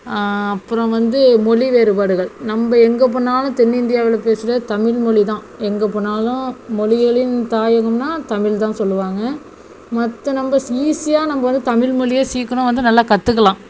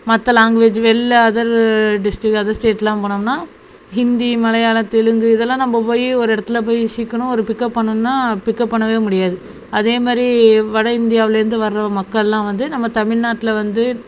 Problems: none marked